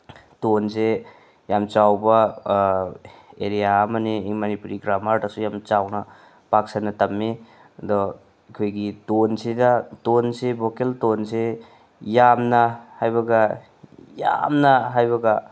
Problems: background sounds at intervals